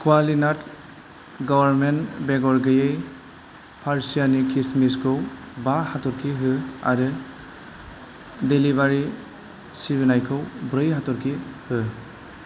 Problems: constant background noise